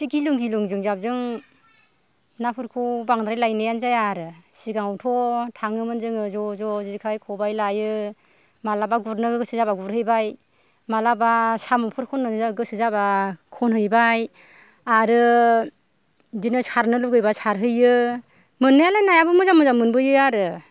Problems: none marked